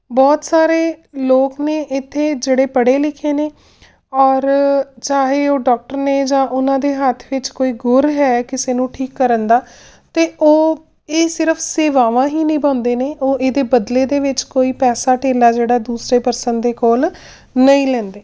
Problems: none marked